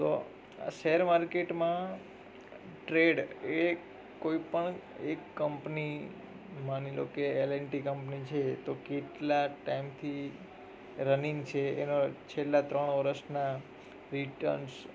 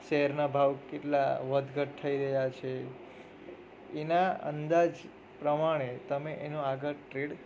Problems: none marked